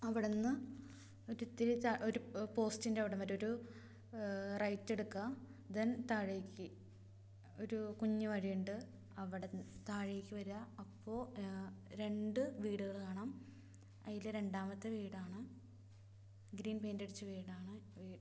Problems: low volume